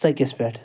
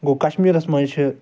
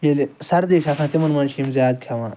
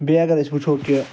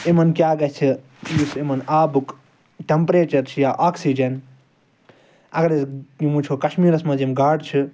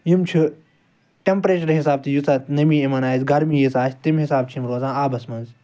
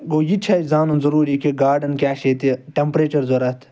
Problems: background sounds at intervals